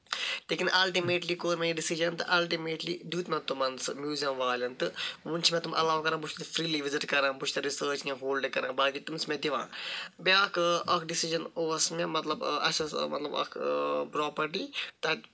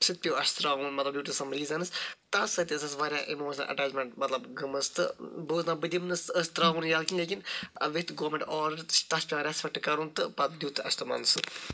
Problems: none marked